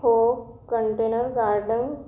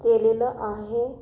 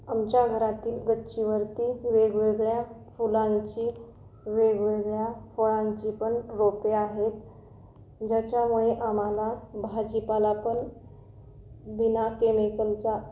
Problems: none marked